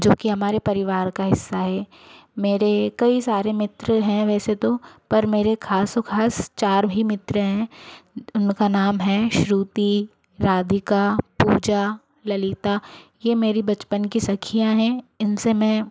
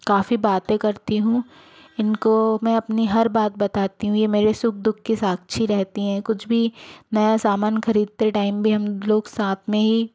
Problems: constant background noise